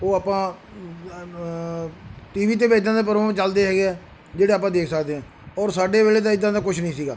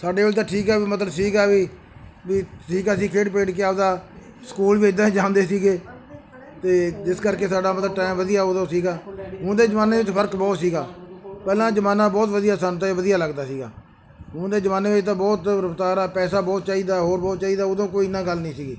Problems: background sounds at intervals